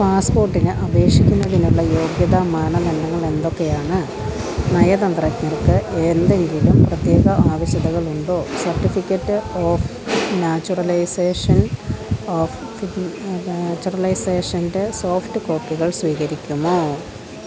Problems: constant background noise